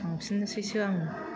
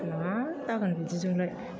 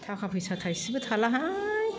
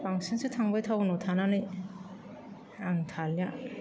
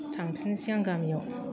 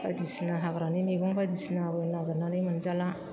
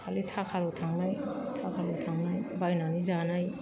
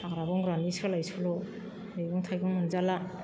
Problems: constant background noise